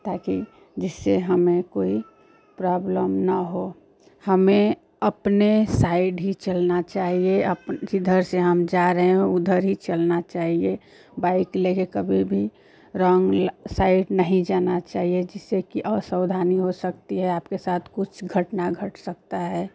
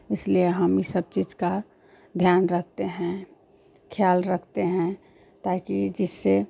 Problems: constant background noise